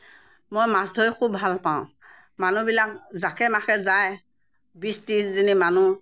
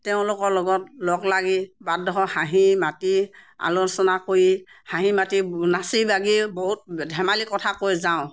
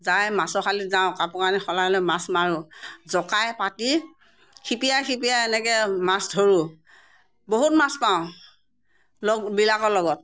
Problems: background sounds at intervals